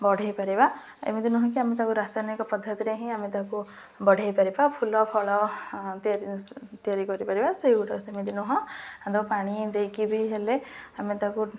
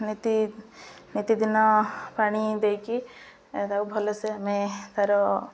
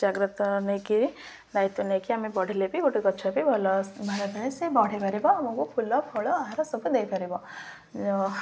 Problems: none marked